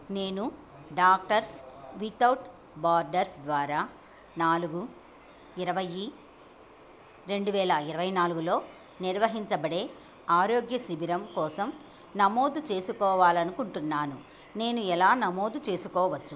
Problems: none marked